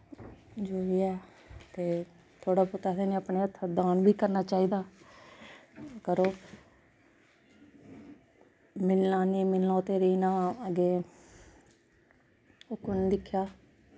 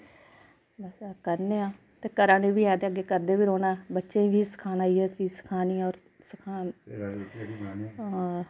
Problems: constant background noise